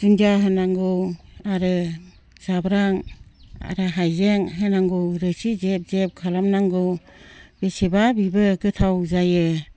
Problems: low volume